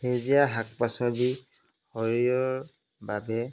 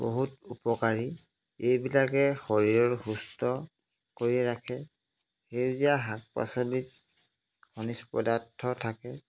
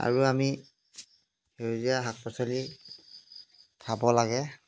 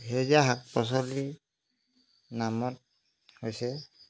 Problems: background sounds at intervals